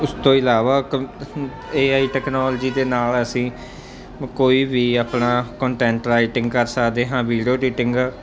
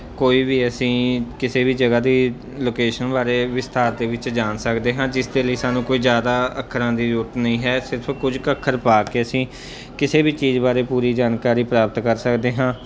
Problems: constant background noise